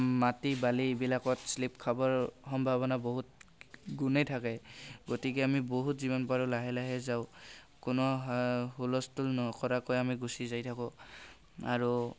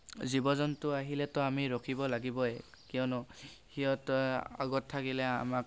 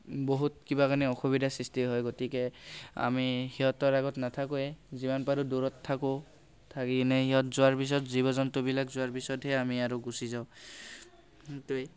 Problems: background sounds at intervals, background conversations at intervals